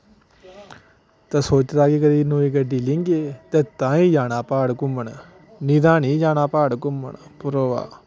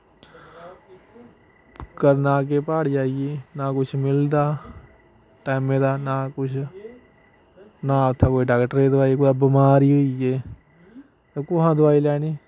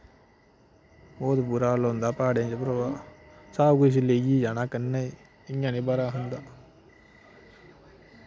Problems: none marked